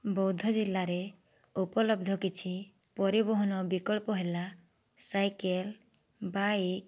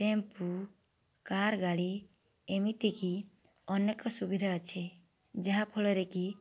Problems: none marked